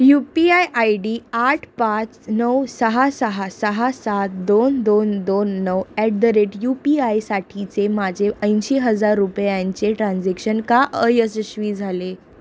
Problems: constant background noise